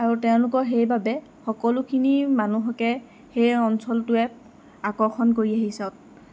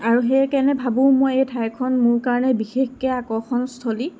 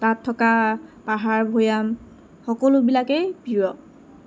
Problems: constant background noise